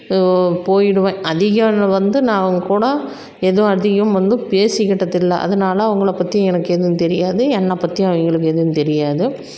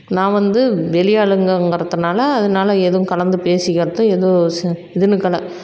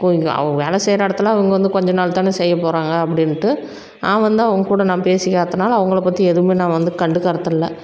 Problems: constant background noise